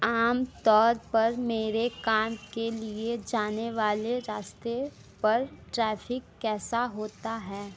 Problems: constant background noise